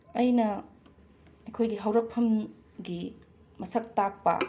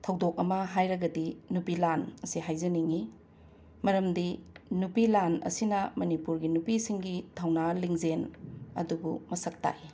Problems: background sounds at intervals